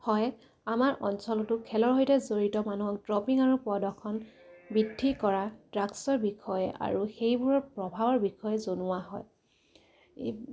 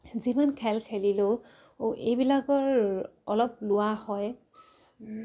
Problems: none marked